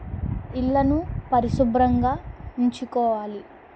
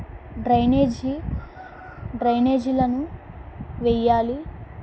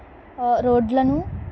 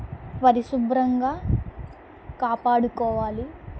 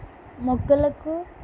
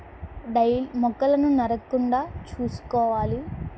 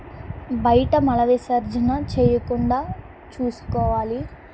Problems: constant background noise